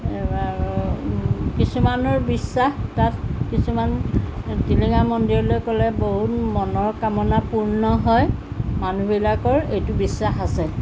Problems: none marked